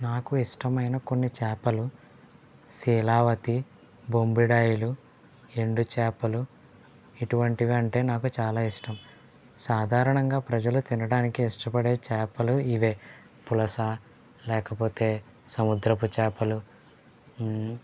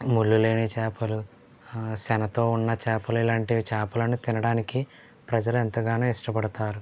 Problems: low volume